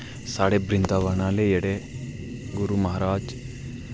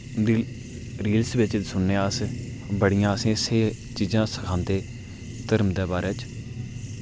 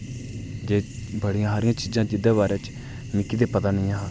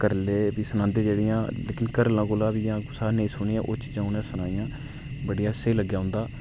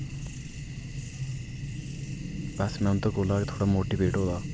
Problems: none marked